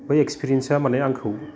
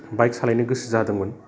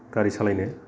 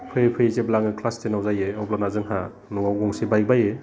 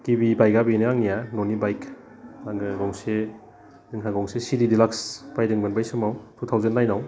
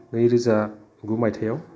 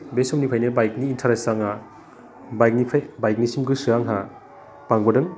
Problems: constant background noise